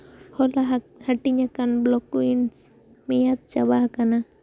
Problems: background sounds at intervals